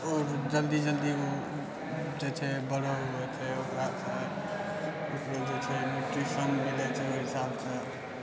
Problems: none marked